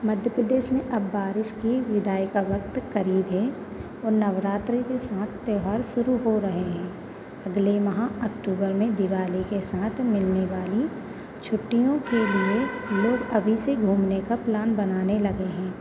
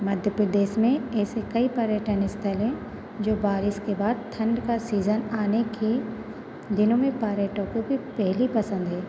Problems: none marked